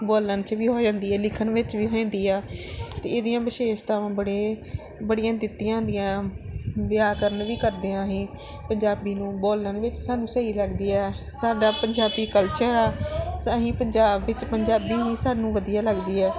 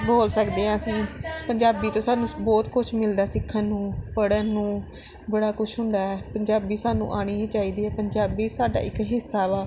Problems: none marked